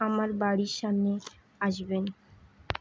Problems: constant background noise